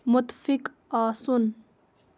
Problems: constant background noise